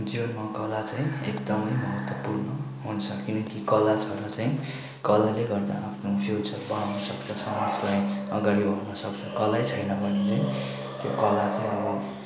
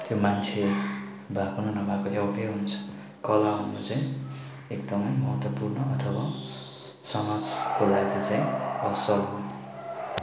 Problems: none marked